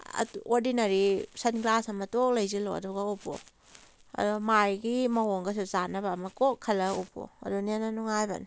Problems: none marked